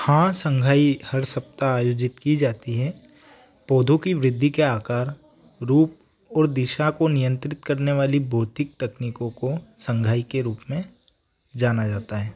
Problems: background sounds at intervals